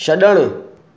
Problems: none marked